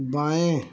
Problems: constant background noise